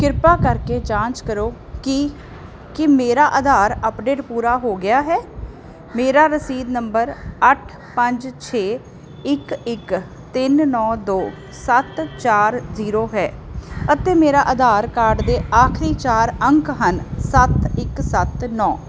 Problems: constant background noise